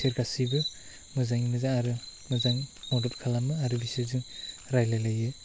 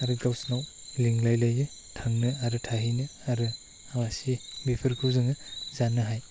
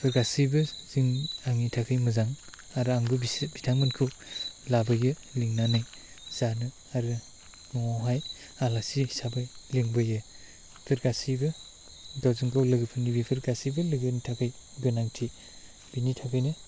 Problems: constant background noise